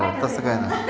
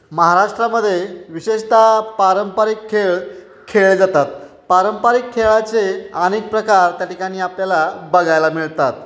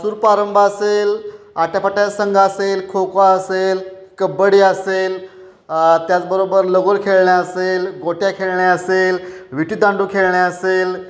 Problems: none marked